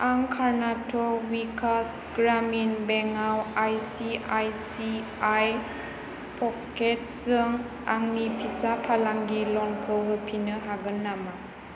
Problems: constant background noise